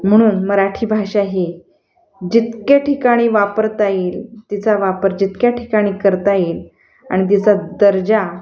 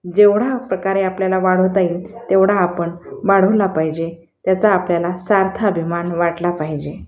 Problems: constant background noise, continuous background conversations